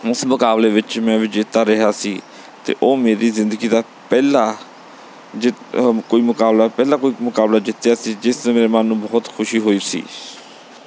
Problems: background sounds at intervals